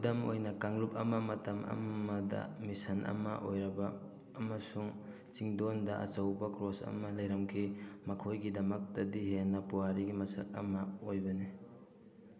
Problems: background conversations at intervals